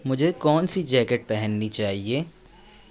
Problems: constant background noise, background conversations at intervals